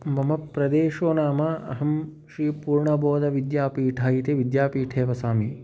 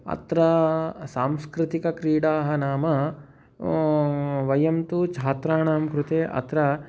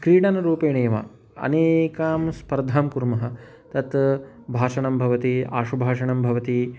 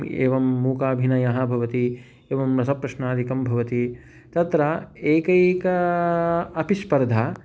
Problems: background sounds at intervals